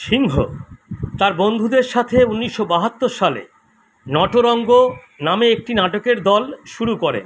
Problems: constant background noise